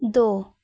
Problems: background sounds at intervals